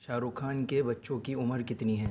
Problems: none marked